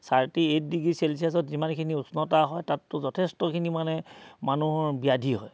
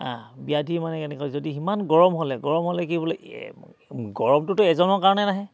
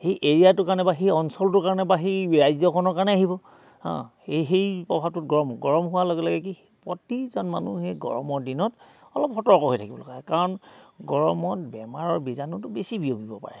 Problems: none marked